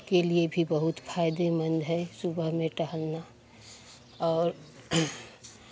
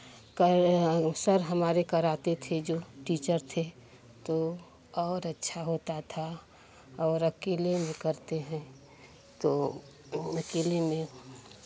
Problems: constant background noise